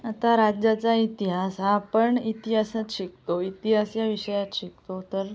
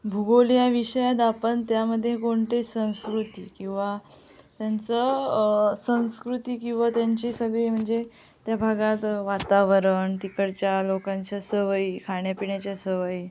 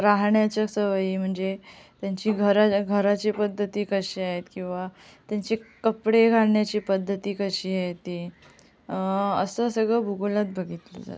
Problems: none marked